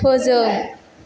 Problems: background conversations at intervals